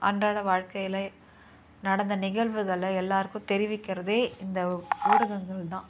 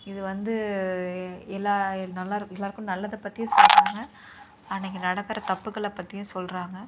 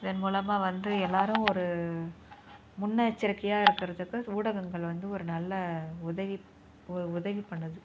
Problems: background sounds at intervals, low volume